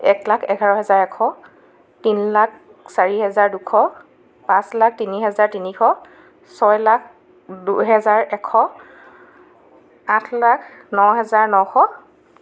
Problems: constant background noise